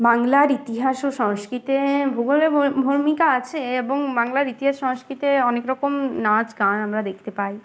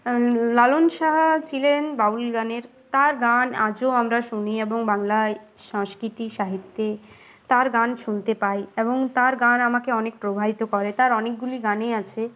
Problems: none marked